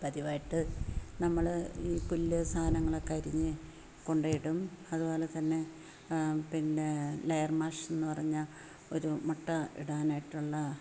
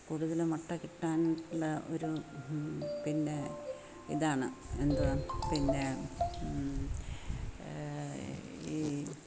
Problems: low volume